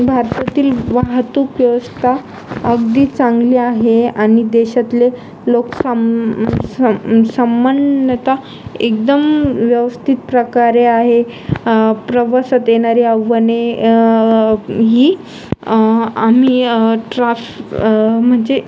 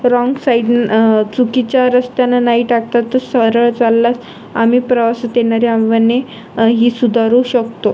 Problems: constant background noise, background conversations at intervals